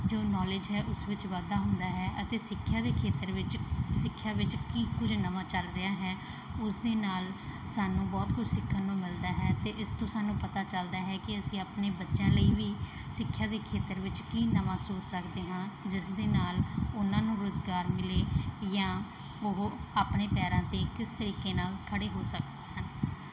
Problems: background sounds at intervals